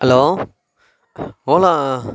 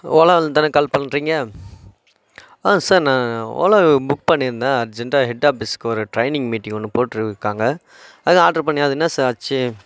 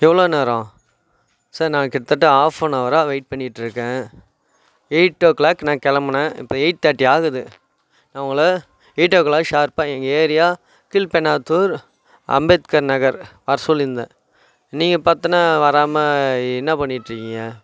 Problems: background sounds at intervals